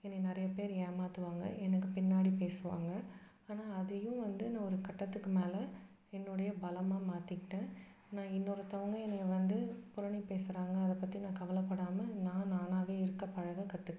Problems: background sounds at intervals